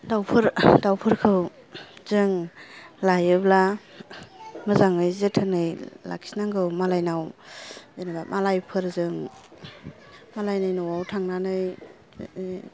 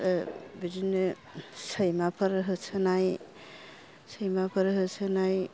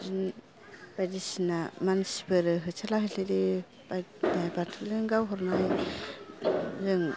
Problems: low volume